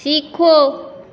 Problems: none marked